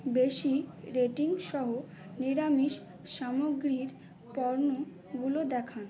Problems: constant background noise, background conversations at intervals